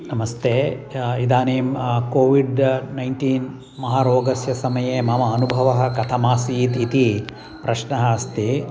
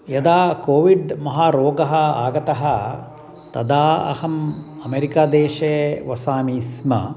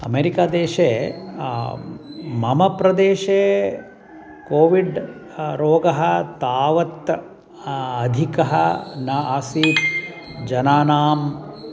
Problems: constant background noise